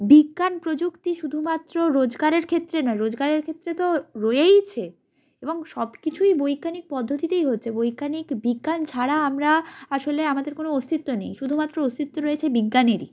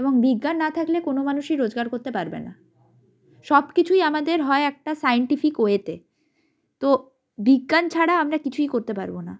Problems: background sounds at intervals